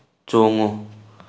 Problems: background conversations at intervals